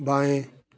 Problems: background sounds at intervals